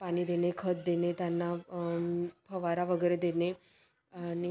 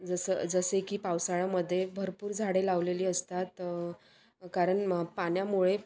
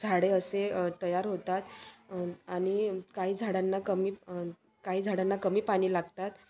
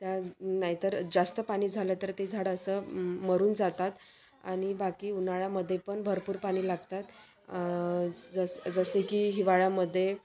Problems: constant background noise, continuous background conversations